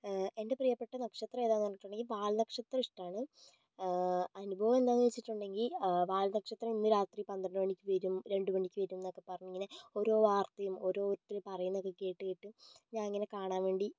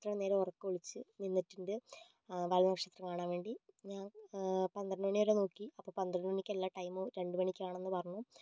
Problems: low volume